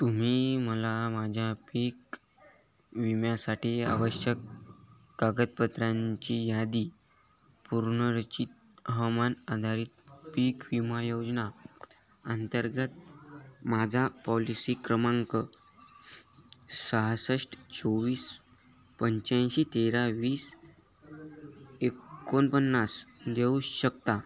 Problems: none marked